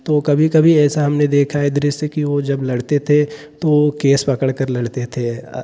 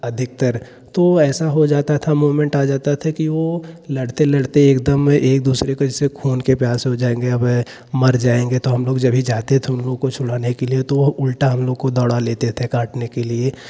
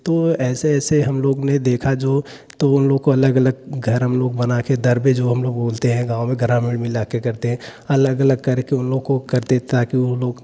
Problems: constant background noise